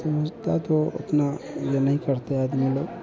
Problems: background conversations at intervals